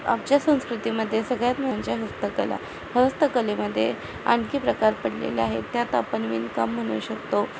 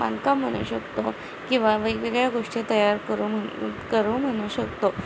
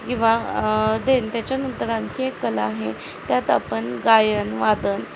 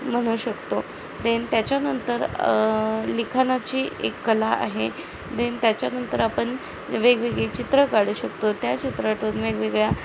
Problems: constant background noise, background conversations at intervals